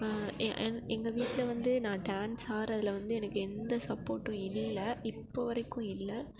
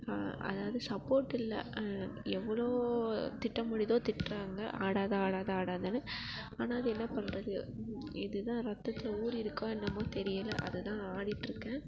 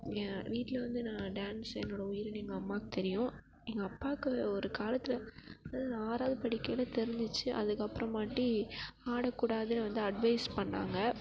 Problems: constant background noise, continuous background conversations